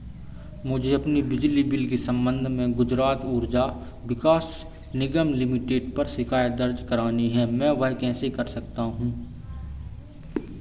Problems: constant background noise